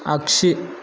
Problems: none marked